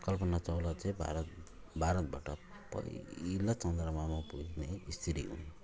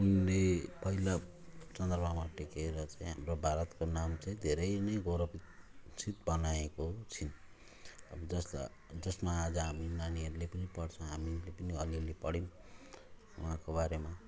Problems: none marked